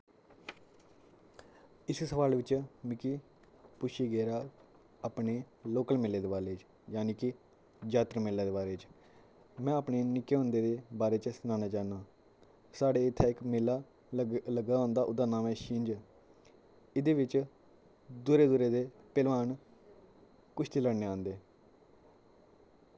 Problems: low volume